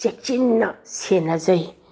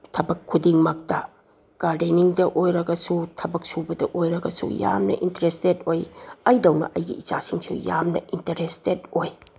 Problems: none marked